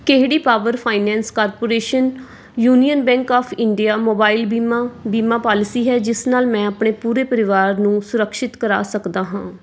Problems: none marked